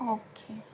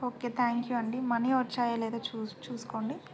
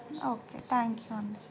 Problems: none marked